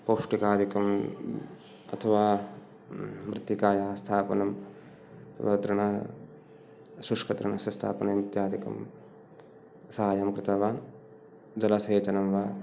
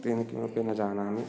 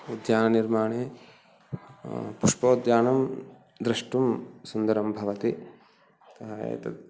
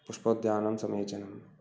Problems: background sounds at intervals